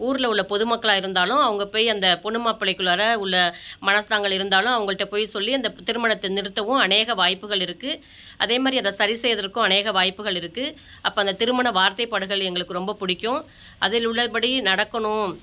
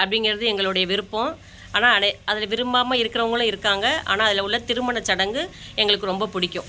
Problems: background sounds at intervals